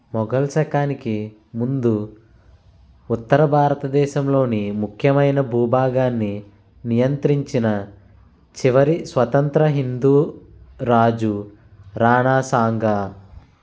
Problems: constant background noise